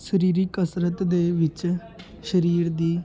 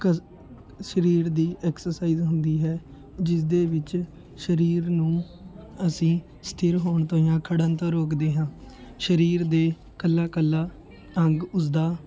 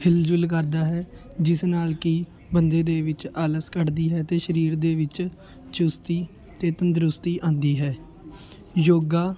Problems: continuous background conversations